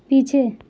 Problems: none marked